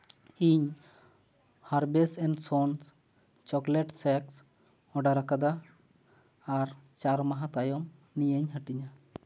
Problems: background sounds at intervals, echo